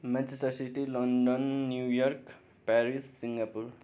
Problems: none marked